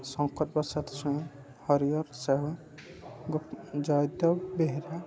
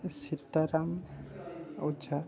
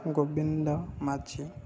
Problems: constant background noise, continuous background conversations